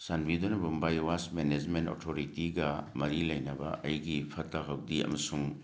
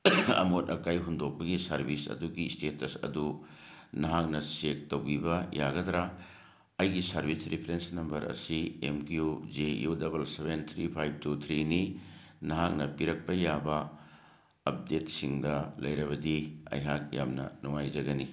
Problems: background sounds at intervals